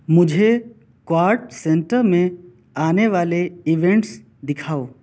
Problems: none marked